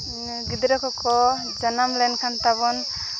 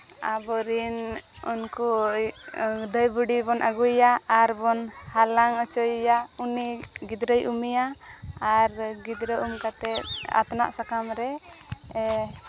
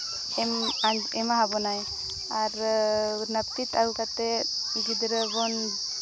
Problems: constant background noise, background conversations at intervals